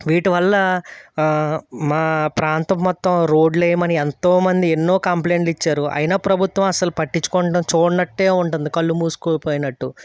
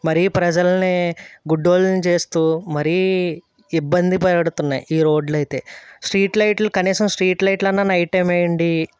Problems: none marked